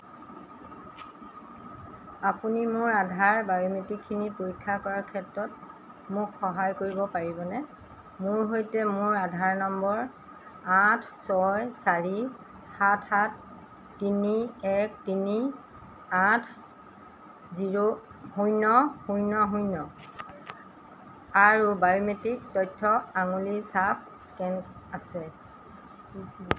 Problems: constant background noise, background conversations at intervals